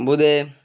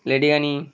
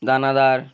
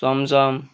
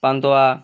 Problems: constant background noise